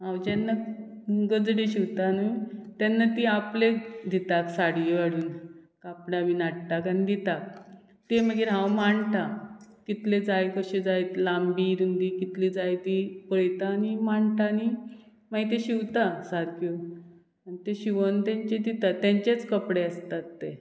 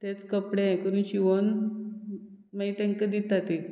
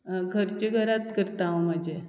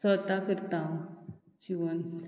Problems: background sounds at intervals